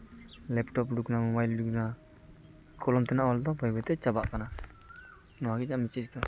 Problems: none marked